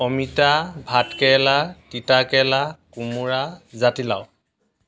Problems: constant background noise